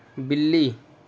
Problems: constant background noise